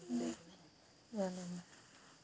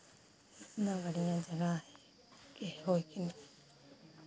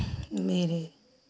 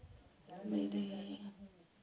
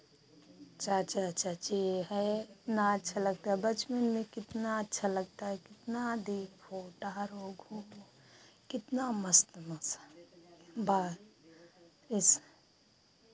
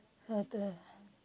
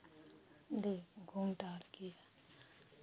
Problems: constant background noise